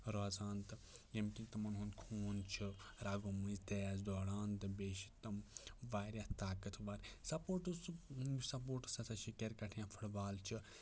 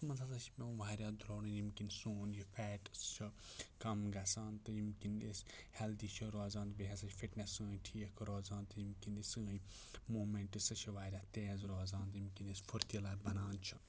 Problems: none marked